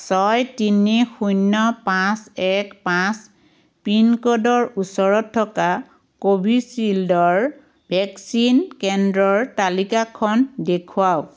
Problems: none marked